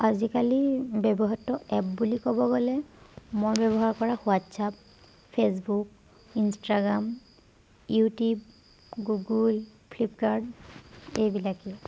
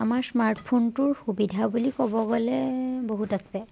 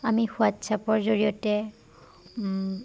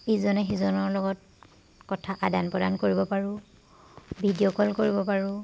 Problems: background sounds at intervals